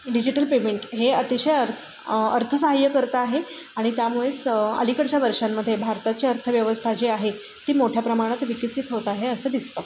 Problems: constant background noise